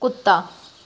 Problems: none marked